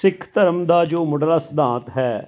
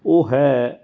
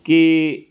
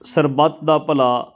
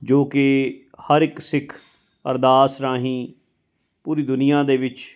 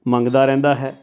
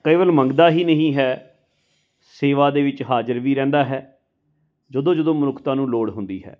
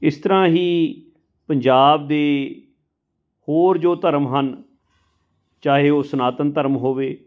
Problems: constant background noise